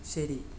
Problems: none marked